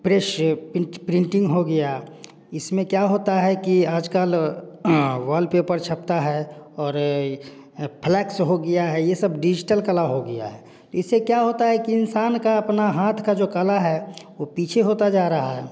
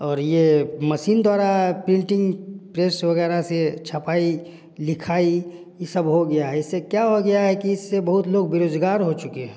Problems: none marked